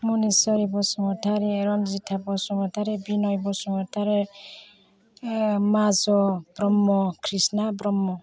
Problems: constant background noise